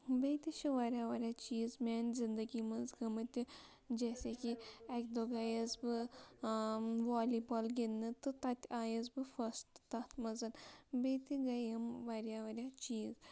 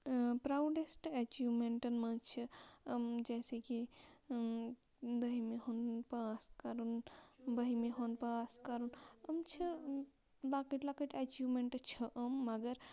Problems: constant background noise, low volume